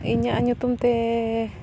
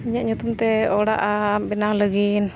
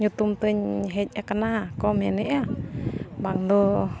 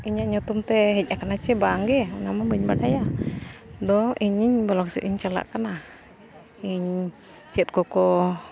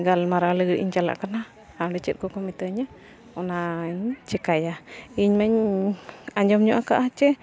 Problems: constant background noise, continuous background conversations